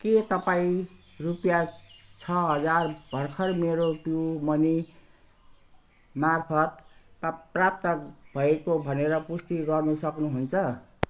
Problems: none marked